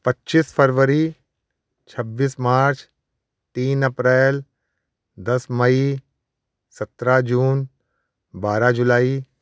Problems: constant background noise